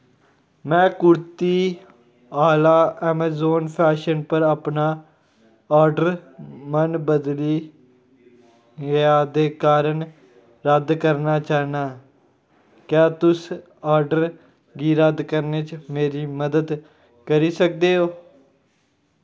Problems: none marked